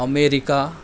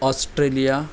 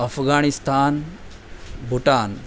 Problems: none marked